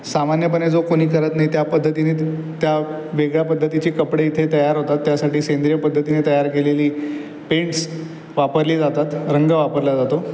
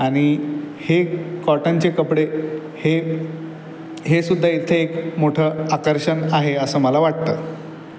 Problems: constant background noise, background conversations at intervals